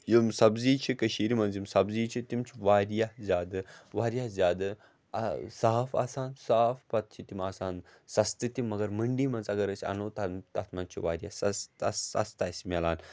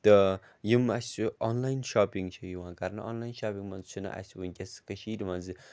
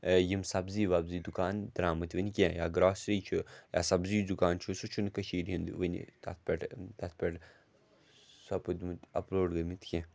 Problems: none marked